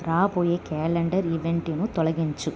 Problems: constant background noise